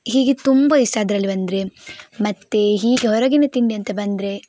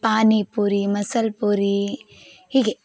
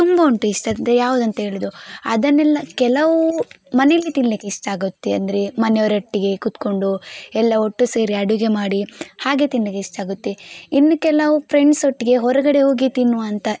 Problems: background sounds at intervals